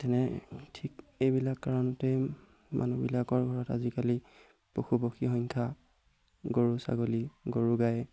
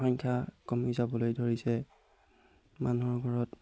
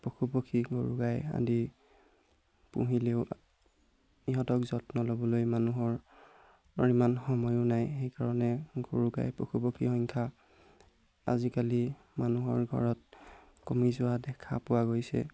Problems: background sounds at intervals